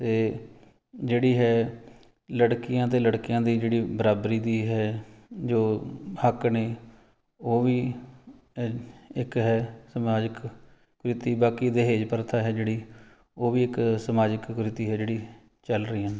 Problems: background sounds at intervals